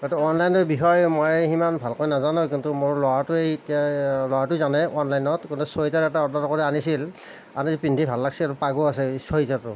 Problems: none marked